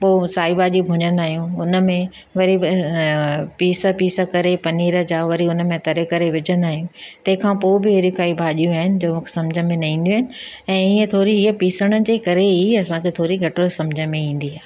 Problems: none marked